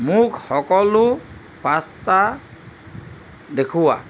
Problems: background sounds at intervals